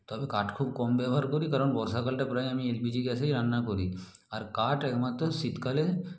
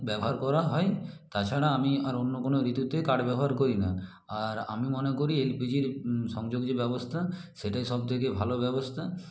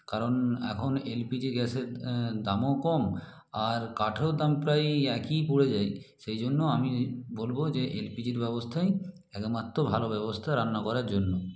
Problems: none marked